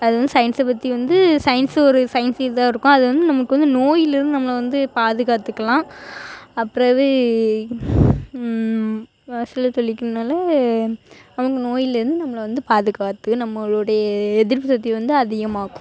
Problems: none marked